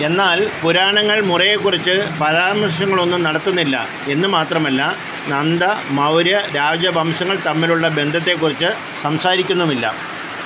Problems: constant background noise